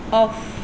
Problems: background sounds at intervals